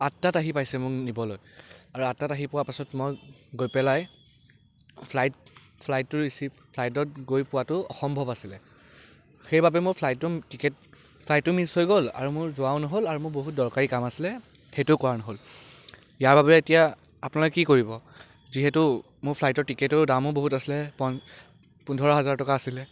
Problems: none marked